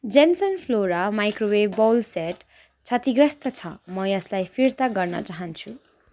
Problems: background sounds at intervals